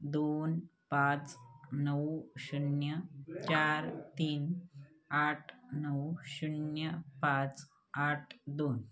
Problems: constant background noise, continuous background conversations